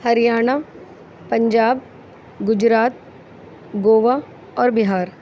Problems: none marked